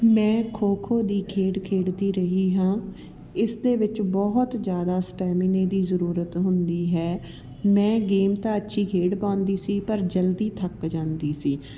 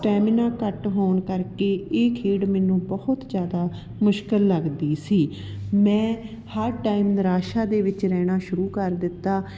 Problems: none marked